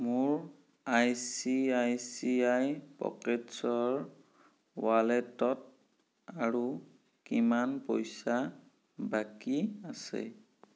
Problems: none marked